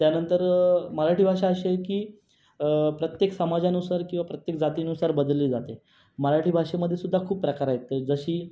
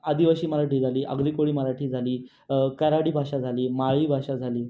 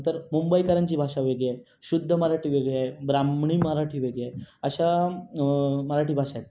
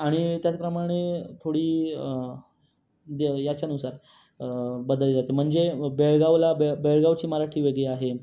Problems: constant background noise, background conversations at intervals